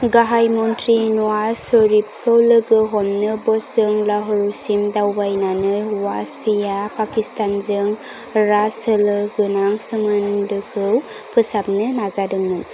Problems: none marked